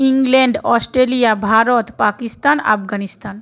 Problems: continuous background conversations